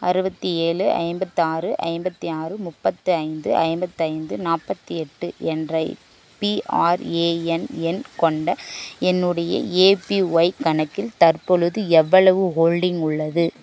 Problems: none marked